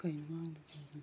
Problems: background sounds at intervals